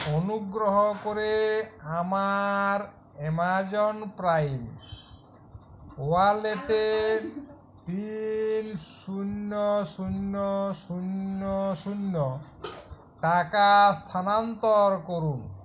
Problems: constant background noise, background conversations at intervals